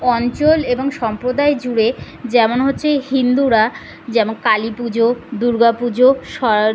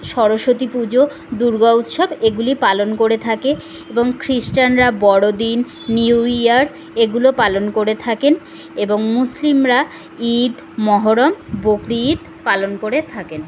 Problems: constant background noise, background conversations at intervals